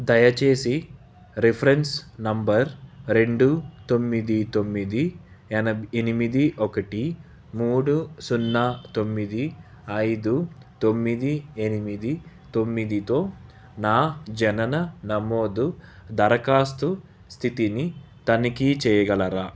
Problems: none marked